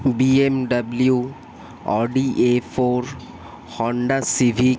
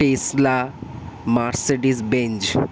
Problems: constant background noise